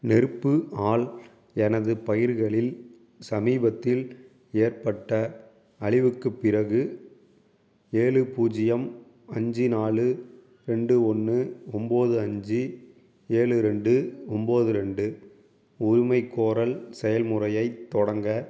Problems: none marked